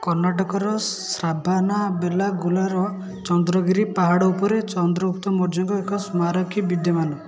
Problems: continuous background conversations